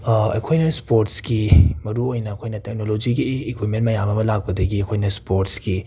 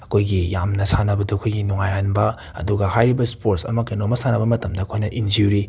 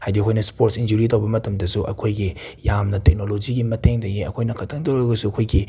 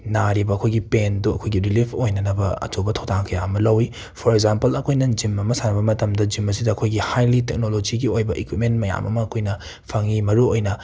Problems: background sounds at intervals